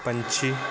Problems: constant background noise